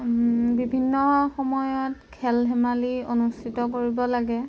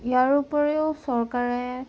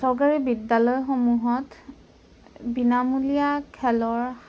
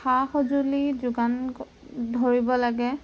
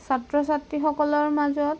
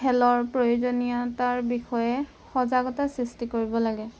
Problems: background sounds at intervals